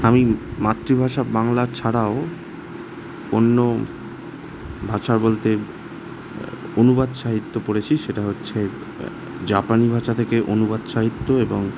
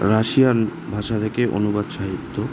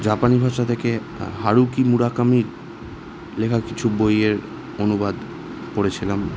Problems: constant background noise